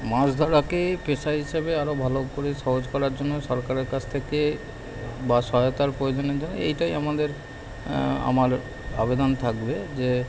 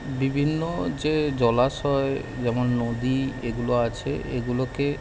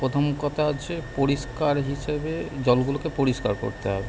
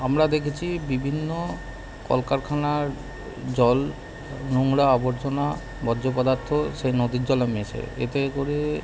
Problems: constant background noise